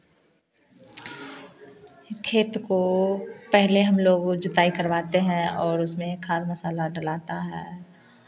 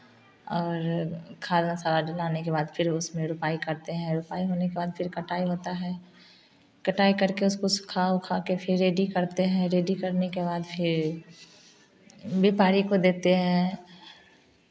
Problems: none marked